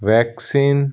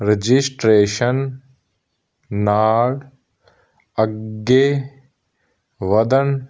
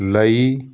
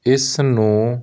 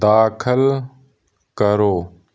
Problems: background sounds at intervals